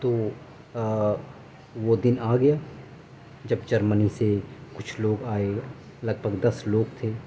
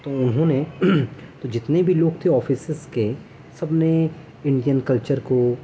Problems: background sounds at intervals